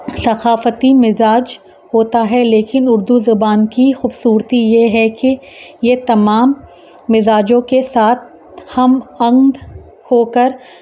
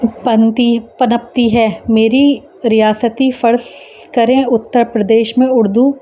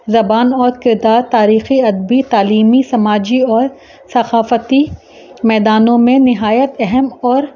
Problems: constant background noise